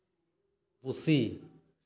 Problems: echo